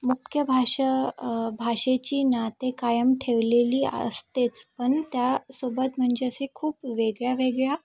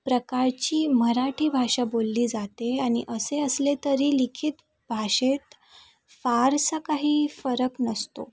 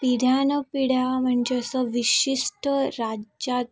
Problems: background sounds at intervals, background conversations at intervals